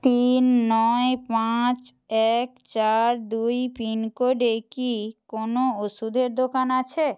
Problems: constant background noise